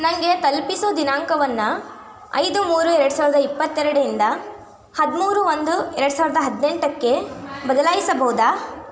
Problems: constant background noise, background conversations at intervals